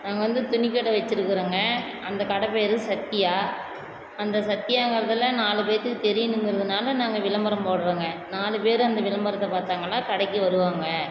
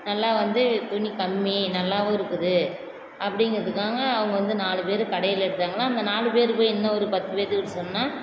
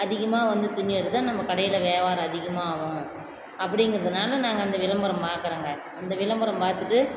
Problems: constant background noise